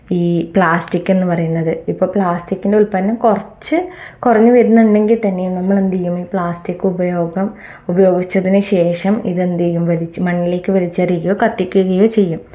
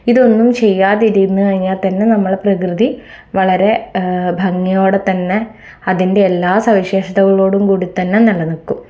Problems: none marked